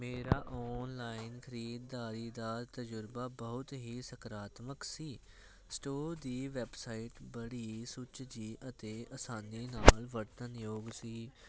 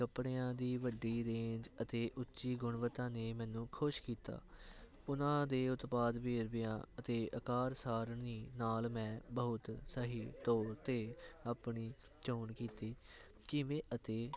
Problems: none marked